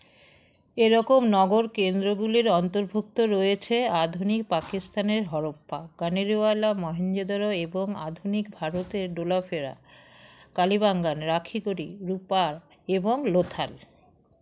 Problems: constant background noise